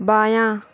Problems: background sounds at intervals